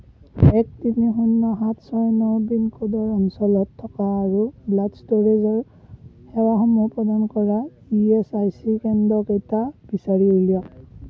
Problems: background sounds at intervals, low volume